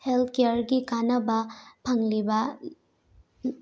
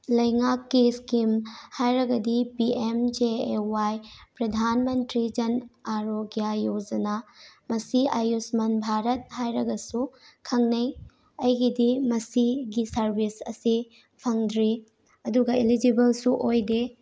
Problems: none marked